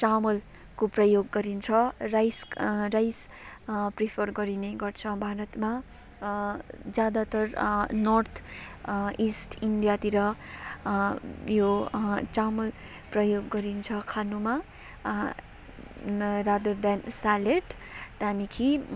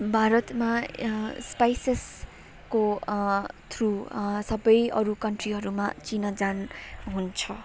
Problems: background sounds at intervals, background conversations at intervals